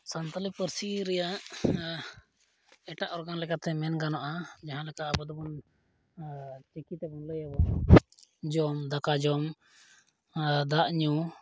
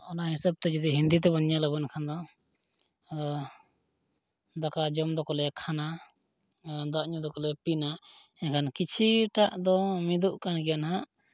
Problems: none marked